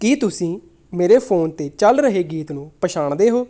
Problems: background sounds at intervals